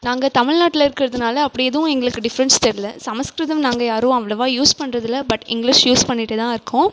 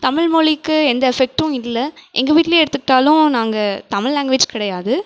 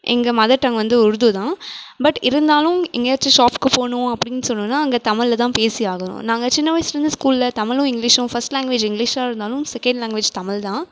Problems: none marked